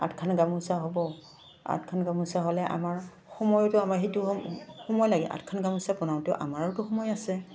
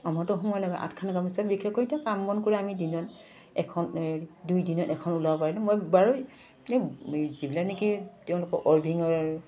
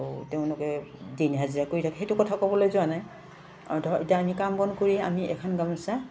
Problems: none marked